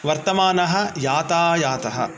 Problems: background sounds at intervals